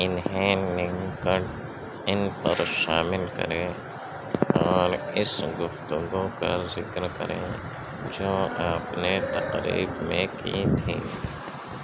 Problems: constant background noise, low volume